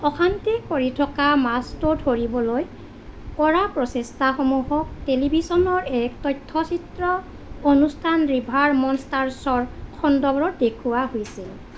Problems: constant background noise